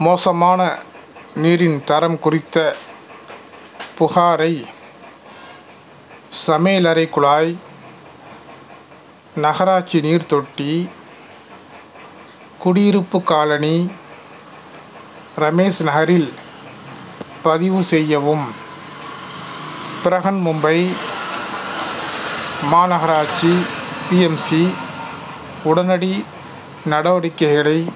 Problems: constant background noise